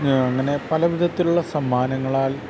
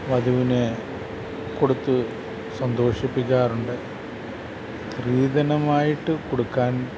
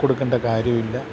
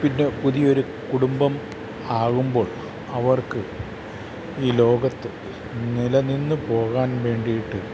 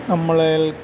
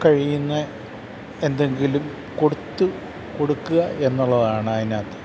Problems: constant background noise